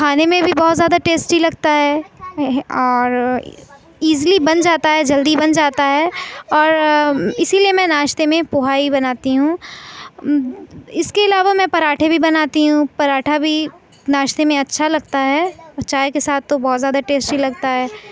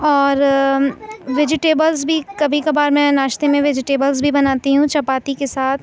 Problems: none marked